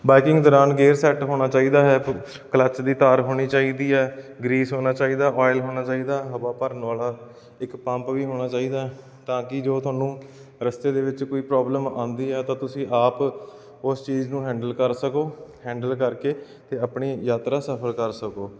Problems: none marked